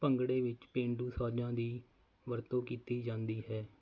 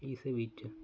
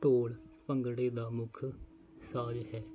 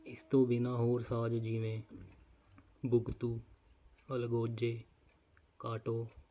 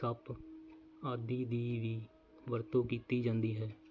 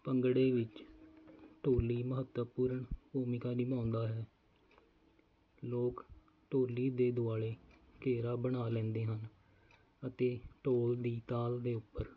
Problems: none marked